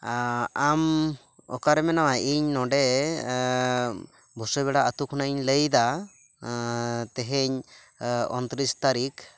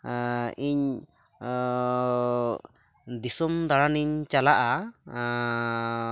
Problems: constant background noise